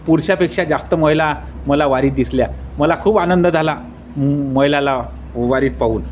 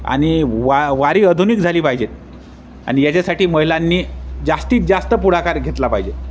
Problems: constant background noise, background conversations at intervals